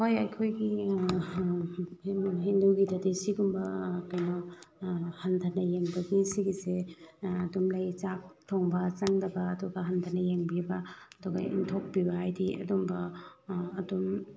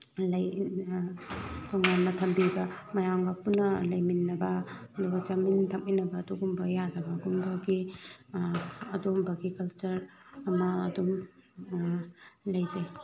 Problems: background conversations at intervals